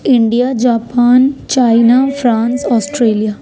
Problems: background conversations at intervals